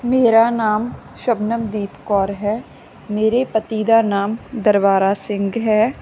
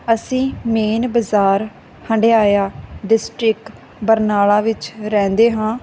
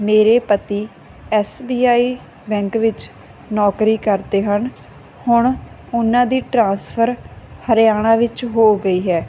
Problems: constant background noise